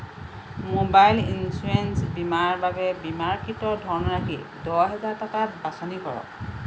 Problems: constant background noise